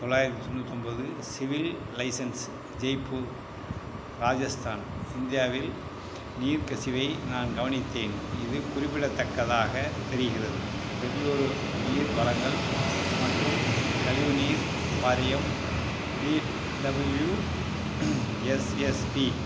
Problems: constant background noise